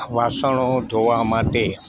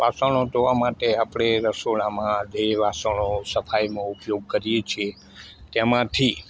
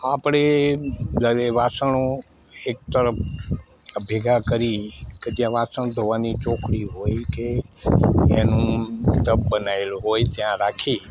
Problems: constant background noise